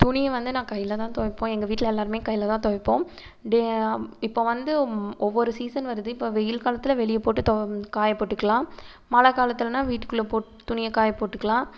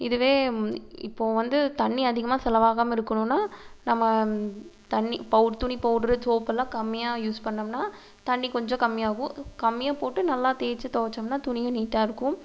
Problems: constant background noise